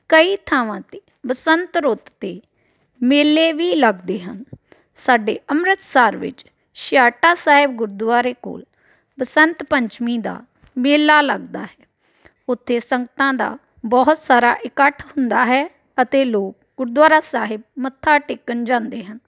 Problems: none marked